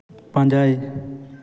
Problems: none marked